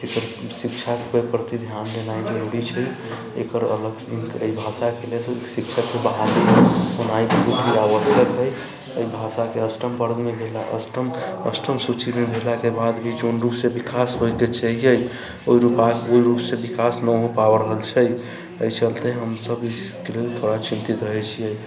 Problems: constant background noise